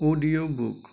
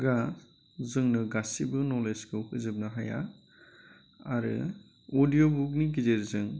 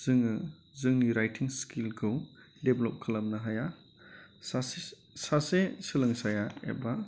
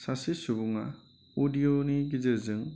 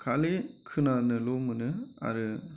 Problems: none marked